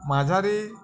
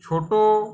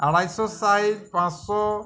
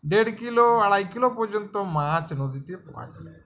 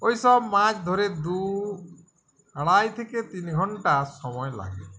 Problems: background sounds at intervals, continuous background conversations